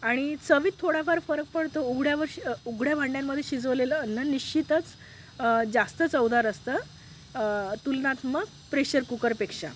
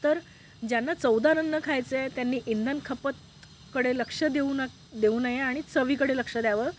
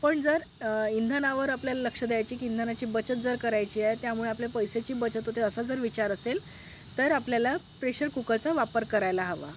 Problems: background sounds at intervals